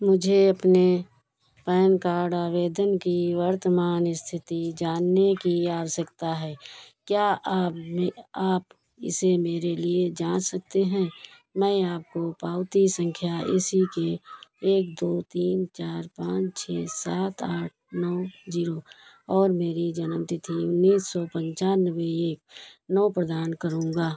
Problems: none marked